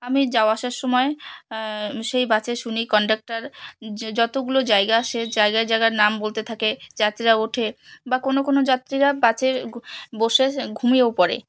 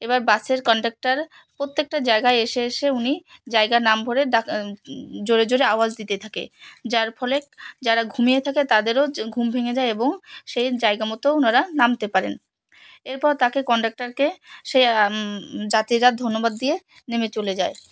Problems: background sounds at intervals, background conversations at intervals